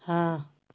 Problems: constant background noise